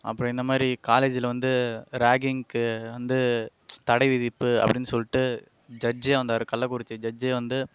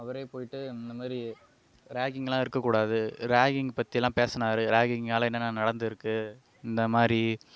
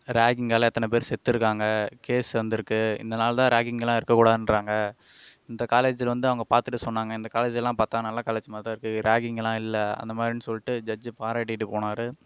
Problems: none marked